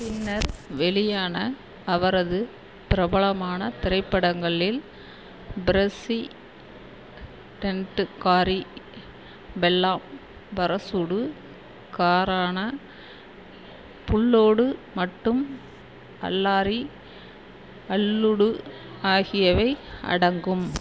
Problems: constant background noise